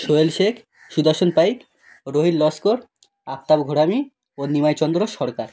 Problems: none marked